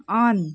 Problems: background conversations at intervals